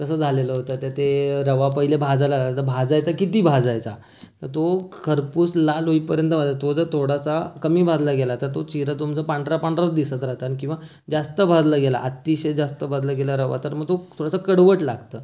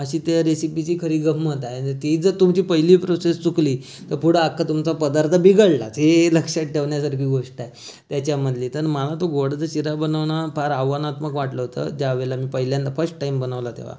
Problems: constant background noise